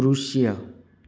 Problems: none marked